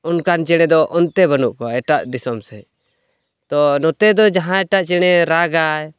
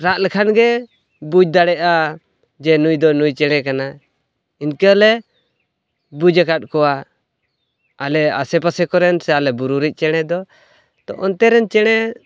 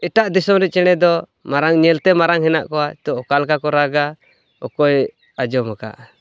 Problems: background sounds at intervals